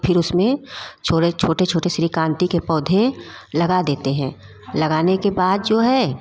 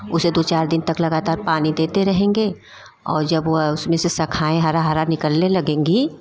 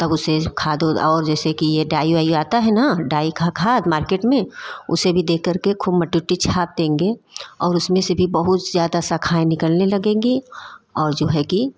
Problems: constant background noise, background conversations at intervals